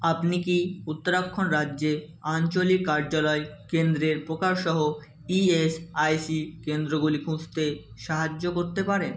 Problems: none marked